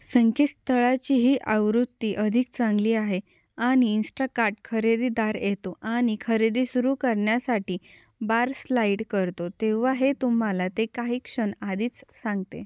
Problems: none marked